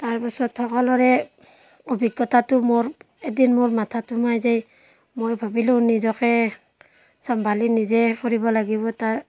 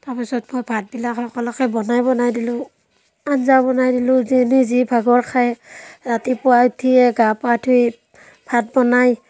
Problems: constant background noise, background conversations at intervals